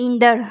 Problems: constant background noise, echo